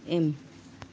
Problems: none marked